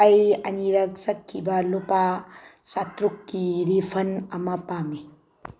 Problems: background sounds at intervals